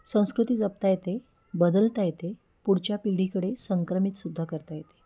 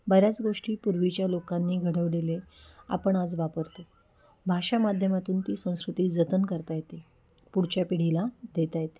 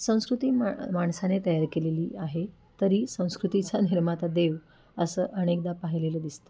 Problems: background sounds at intervals, background conversations at intervals